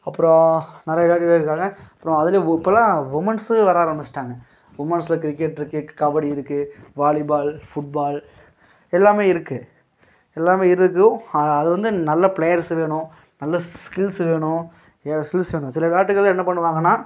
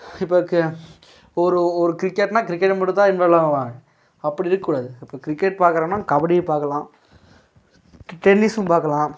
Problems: background sounds at intervals